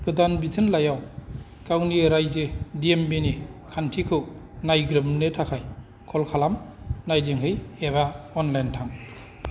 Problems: none marked